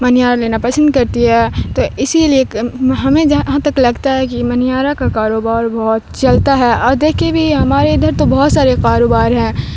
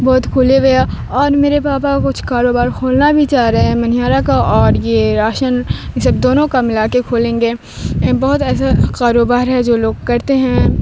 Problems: constant background noise